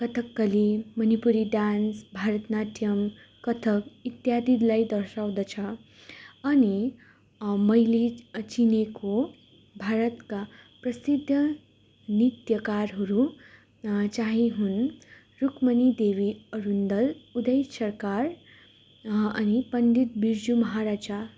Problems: none marked